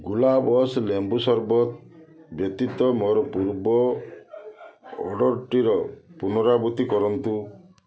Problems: continuous background conversations